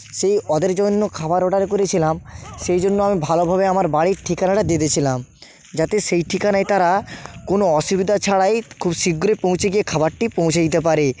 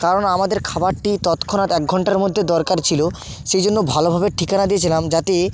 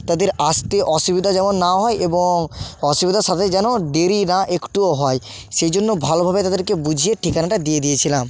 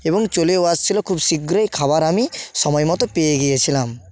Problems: constant background noise